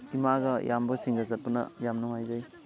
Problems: constant background noise, continuous background conversations